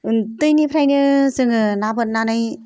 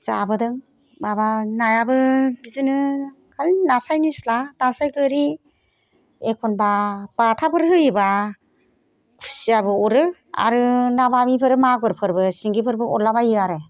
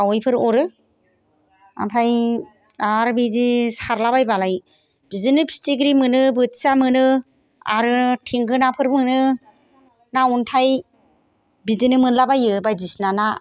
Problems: background sounds at intervals